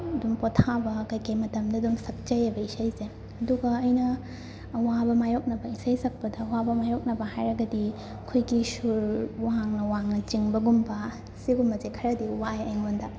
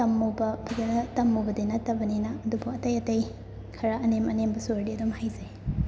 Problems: constant background noise